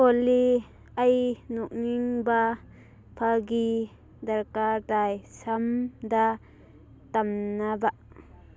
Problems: constant background noise